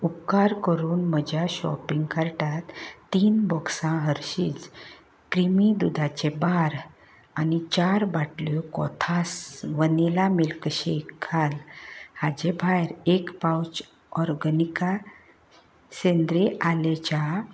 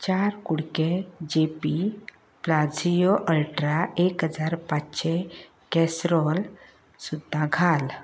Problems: none marked